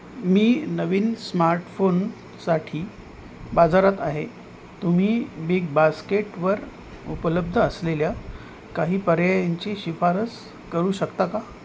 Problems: constant background noise